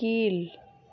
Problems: none marked